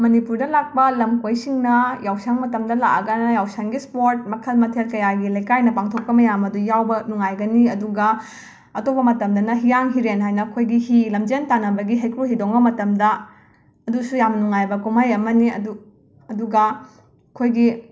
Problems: background sounds at intervals